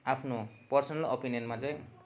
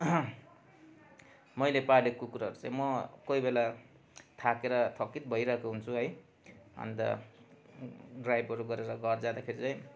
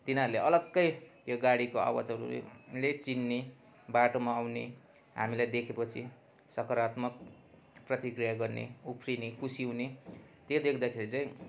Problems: constant background noise